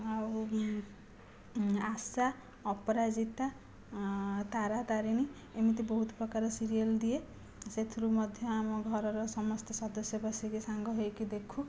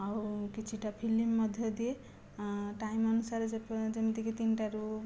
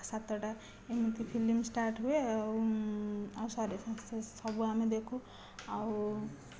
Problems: none marked